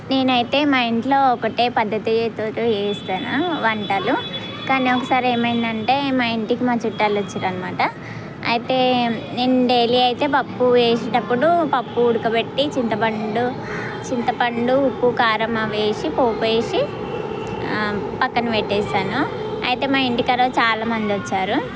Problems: none marked